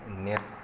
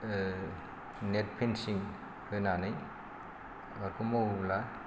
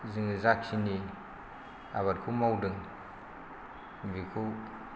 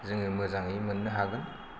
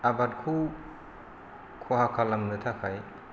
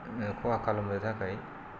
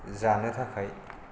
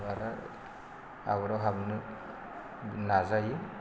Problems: constant background noise